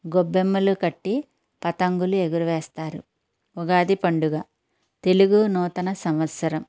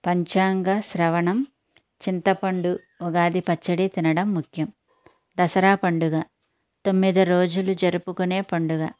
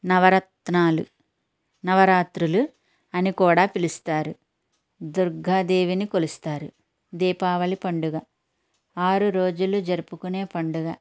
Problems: none marked